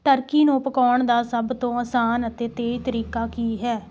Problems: background sounds at intervals